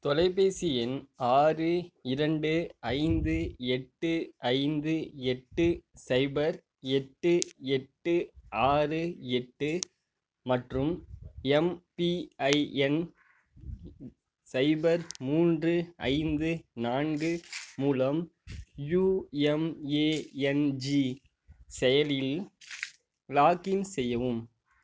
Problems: none marked